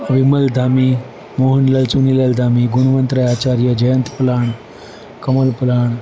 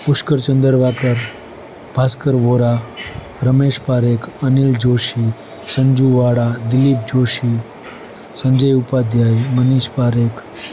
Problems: constant background noise